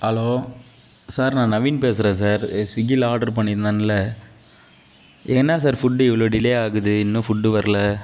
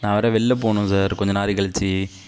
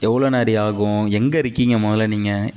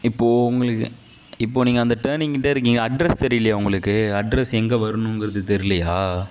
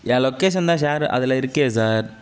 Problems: none marked